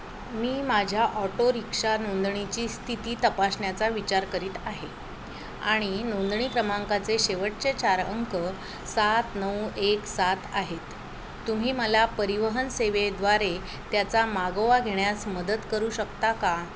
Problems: constant background noise, background conversations at intervals